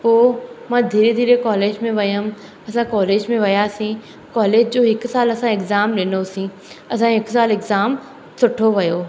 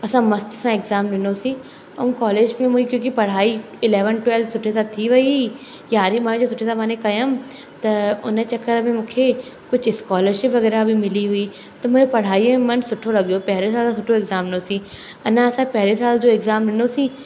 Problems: constant background noise